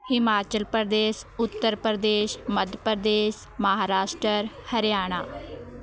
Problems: continuous background conversations